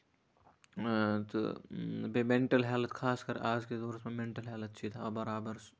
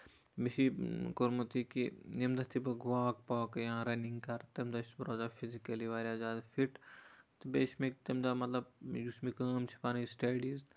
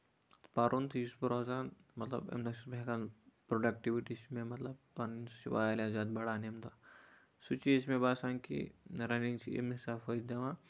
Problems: none marked